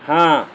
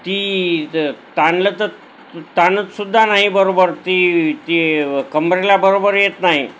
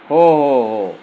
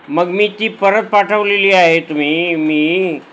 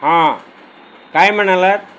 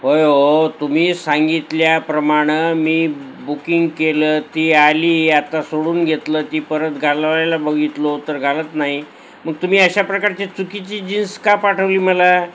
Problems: none marked